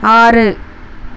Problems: constant background noise